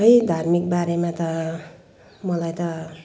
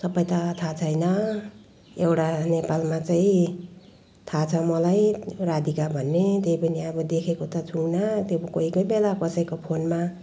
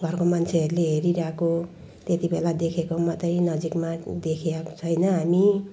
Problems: background sounds at intervals